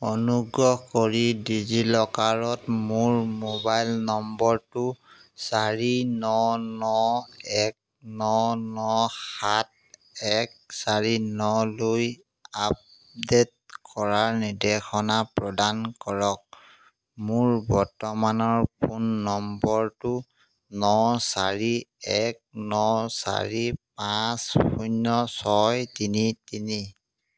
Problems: background sounds at intervals